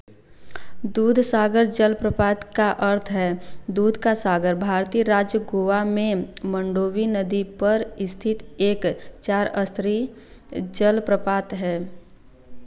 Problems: constant background noise